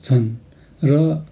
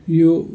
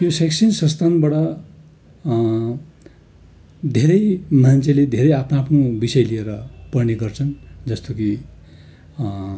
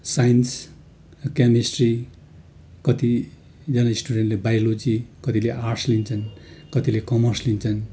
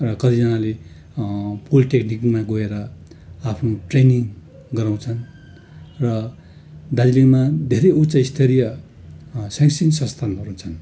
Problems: constant background noise